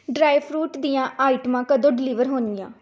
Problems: none marked